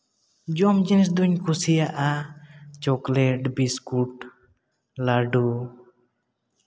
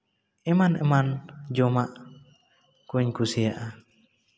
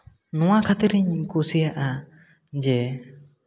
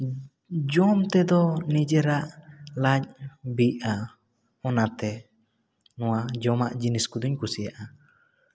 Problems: none marked